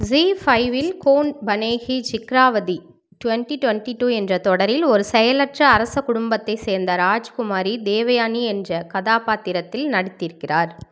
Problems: background sounds at intervals